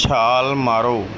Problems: background sounds at intervals